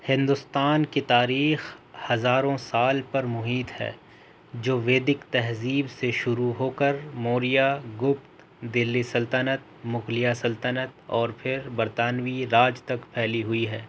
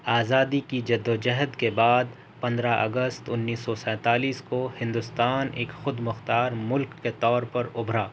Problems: constant background noise